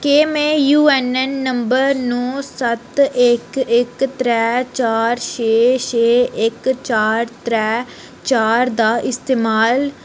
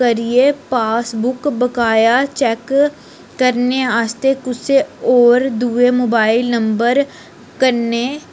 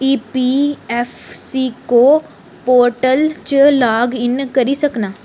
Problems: none marked